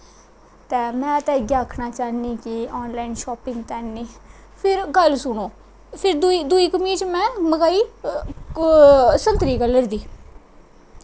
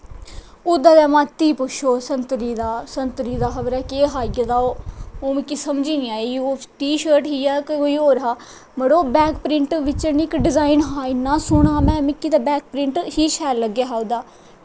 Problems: none marked